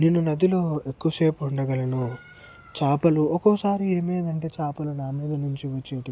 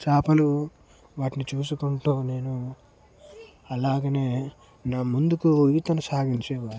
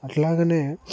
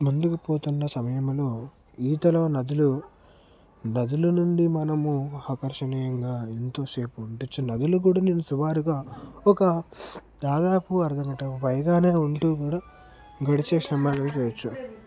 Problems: constant background noise, background conversations at intervals